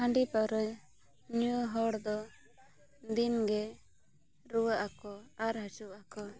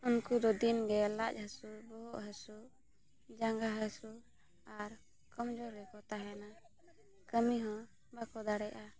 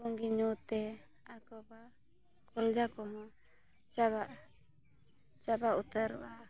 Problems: background conversations at intervals